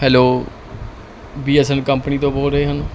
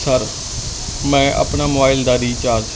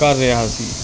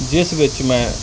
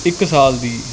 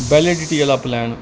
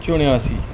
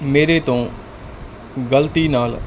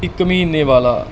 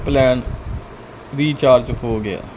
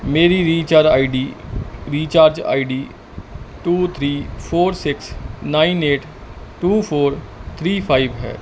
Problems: constant background noise